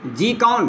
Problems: constant background noise